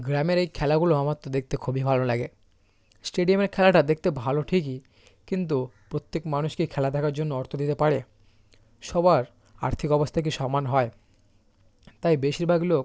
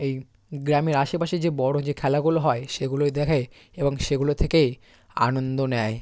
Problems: constant background noise